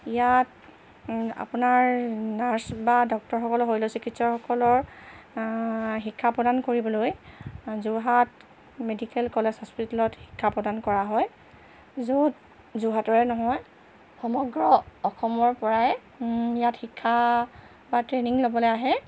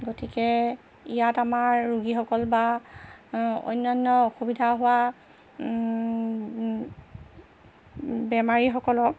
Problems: constant background noise